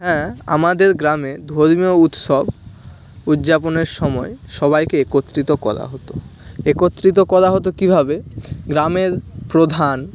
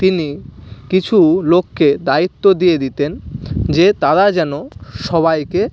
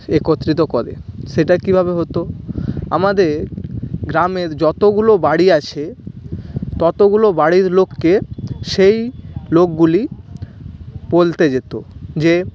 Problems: constant background noise, continuous background conversations